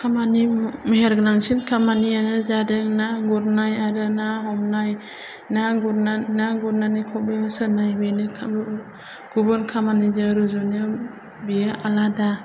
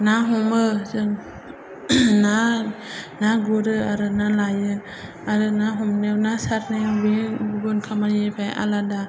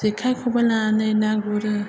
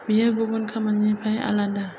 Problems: low volume